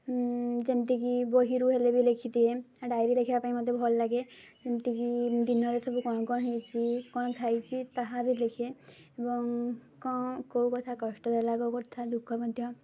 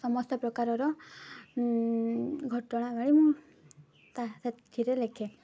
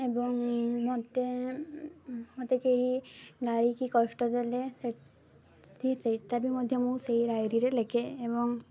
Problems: low volume